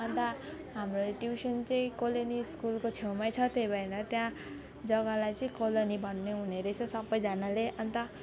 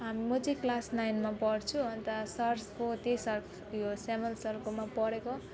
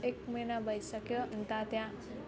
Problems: none marked